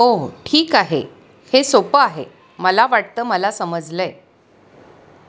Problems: constant background noise